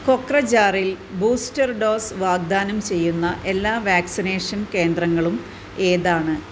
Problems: none marked